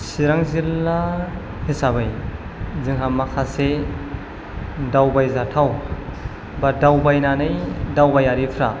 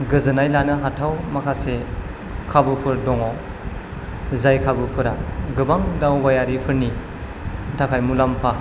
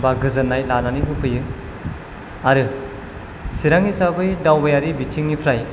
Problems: none marked